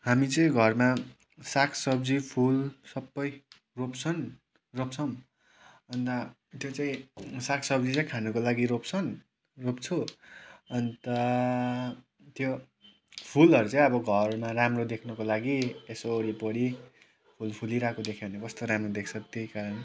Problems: background sounds at intervals